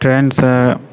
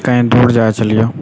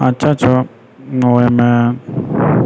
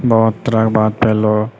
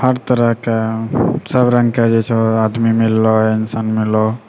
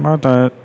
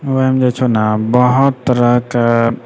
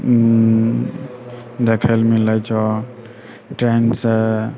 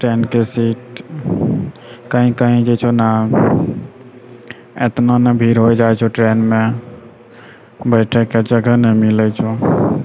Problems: none marked